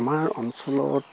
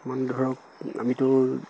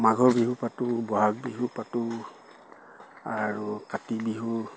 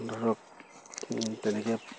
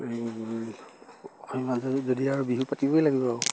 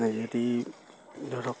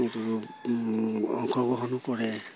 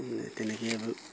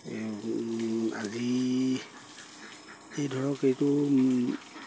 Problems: constant background noise